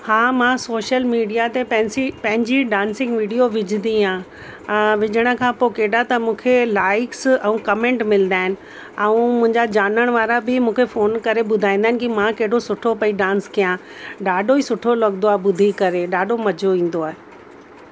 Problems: constant background noise